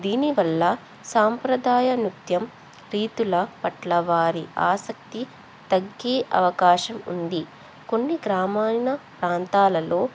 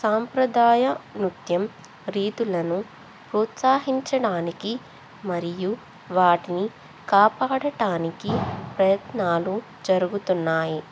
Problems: background conversations at intervals